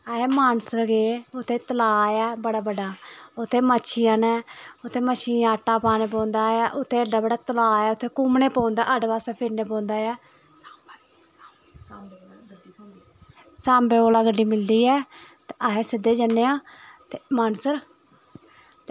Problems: constant background noise, continuous background conversations